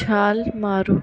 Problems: background sounds at intervals